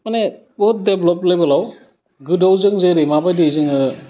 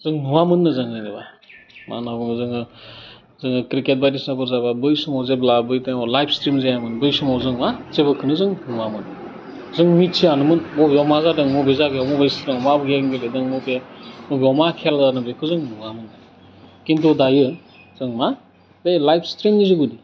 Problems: constant background noise